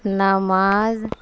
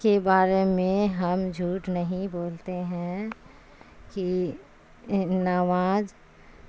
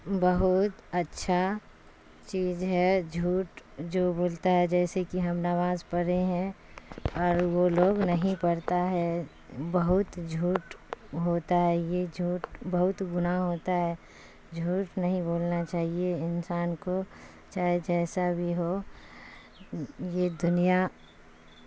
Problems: constant background noise